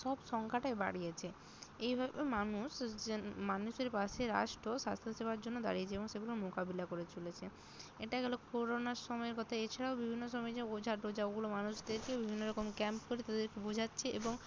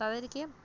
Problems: none marked